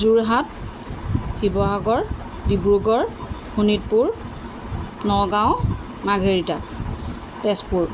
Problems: constant background noise